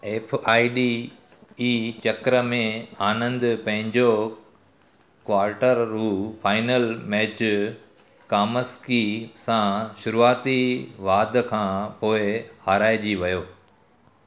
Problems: constant background noise, echo